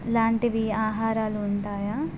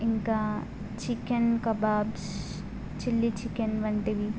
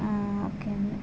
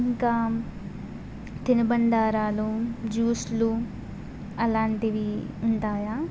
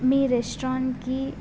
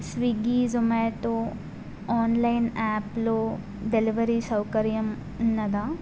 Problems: constant background noise